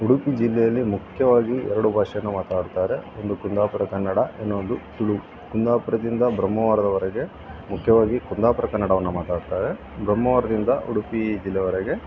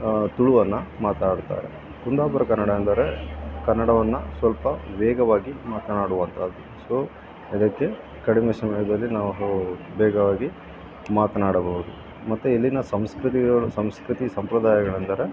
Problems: constant background noise